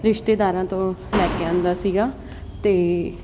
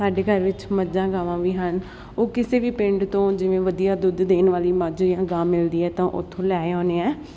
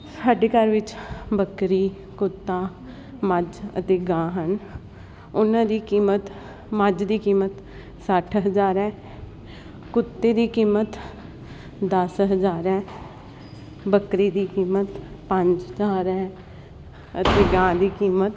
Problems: constant background noise